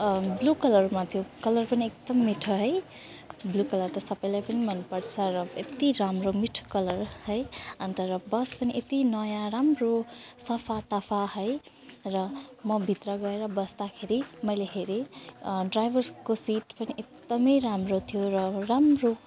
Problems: constant background noise